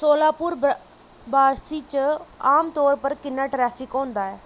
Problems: none marked